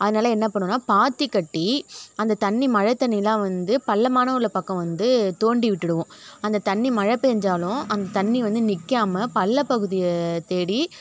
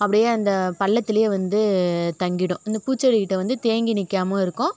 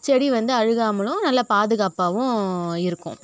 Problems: none marked